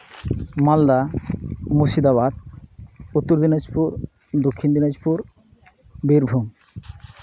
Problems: background sounds at intervals, background conversations at intervals